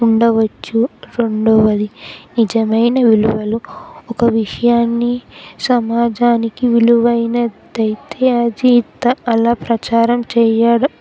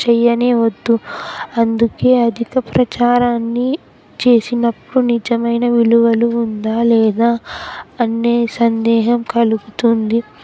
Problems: constant background noise, background conversations at intervals